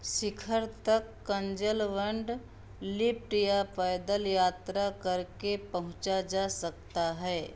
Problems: background sounds at intervals